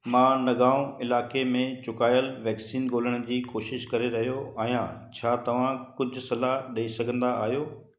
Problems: constant background noise, echo